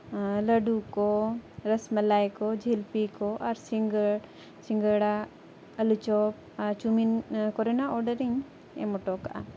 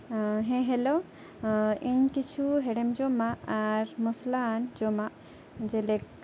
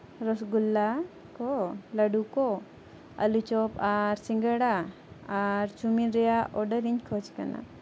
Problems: background conversations at intervals